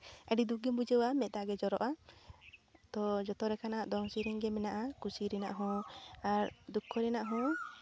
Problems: constant background noise